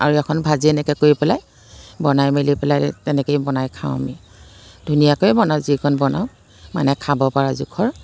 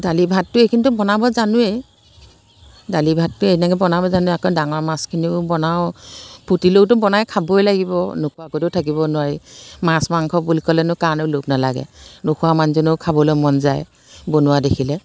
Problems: constant background noise